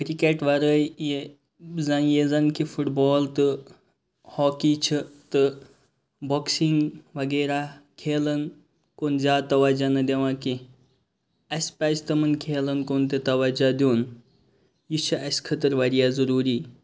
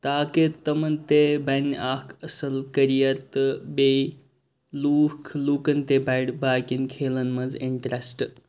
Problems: none marked